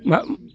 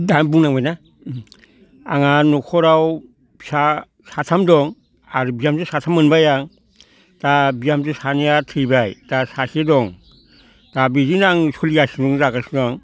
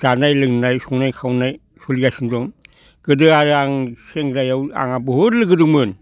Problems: none marked